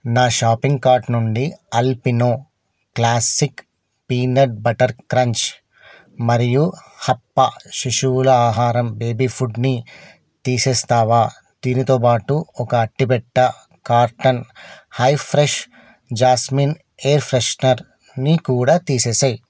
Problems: none marked